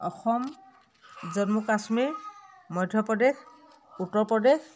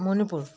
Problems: continuous background conversations